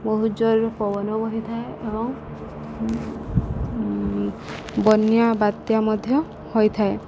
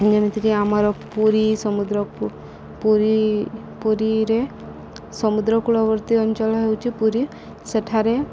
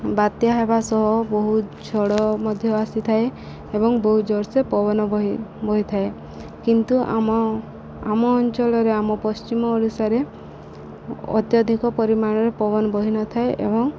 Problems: none marked